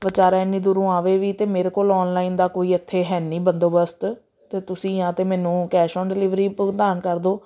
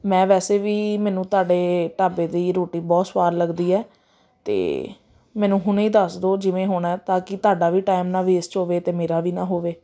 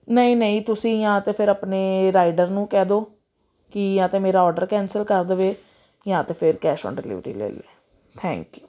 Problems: none marked